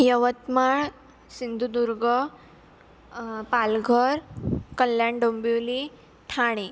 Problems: constant background noise